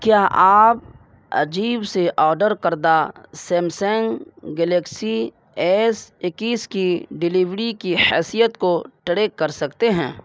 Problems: background sounds at intervals